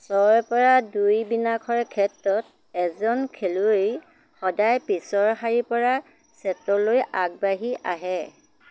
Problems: background sounds at intervals